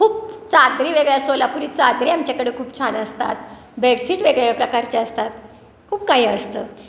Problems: constant background noise, continuous background conversations